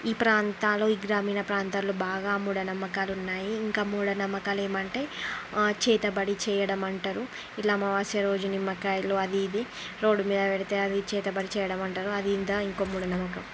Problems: constant background noise